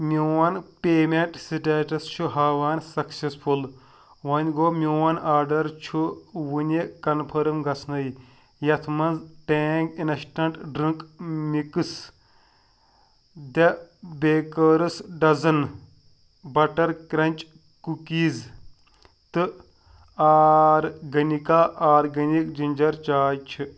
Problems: none marked